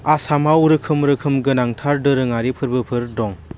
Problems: constant background noise